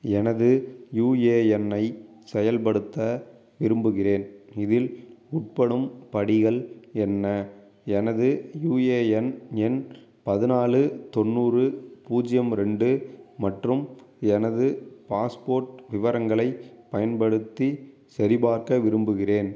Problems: none marked